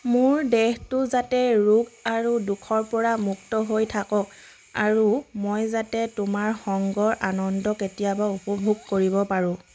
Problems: background sounds at intervals